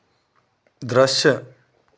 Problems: constant background noise